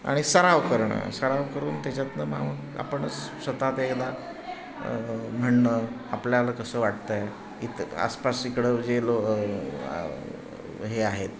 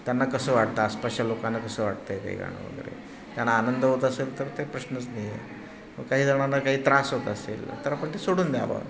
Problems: constant background noise